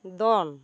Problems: none marked